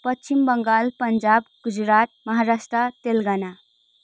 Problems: none marked